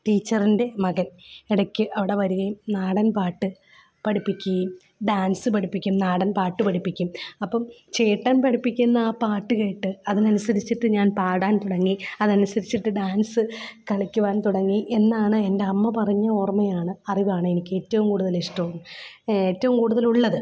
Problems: none marked